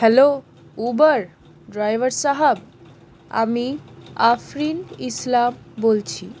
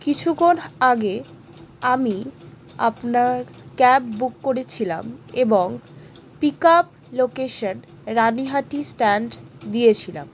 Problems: none marked